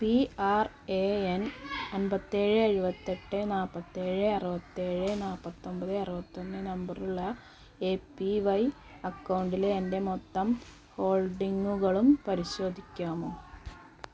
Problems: low volume